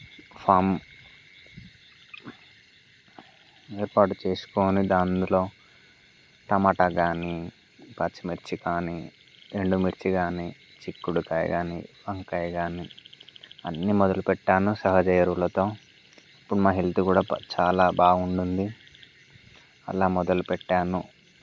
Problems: constant background noise